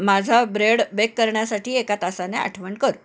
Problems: background sounds at intervals